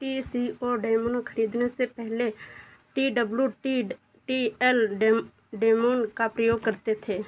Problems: none marked